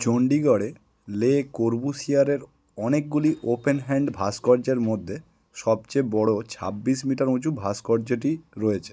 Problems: none marked